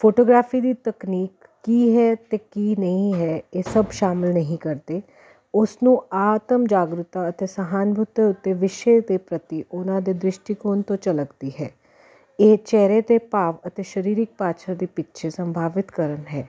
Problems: constant background noise